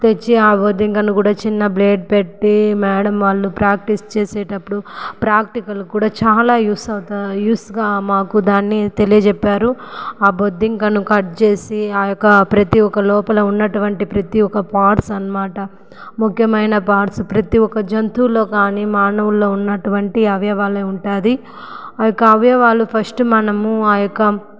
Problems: background sounds at intervals, echo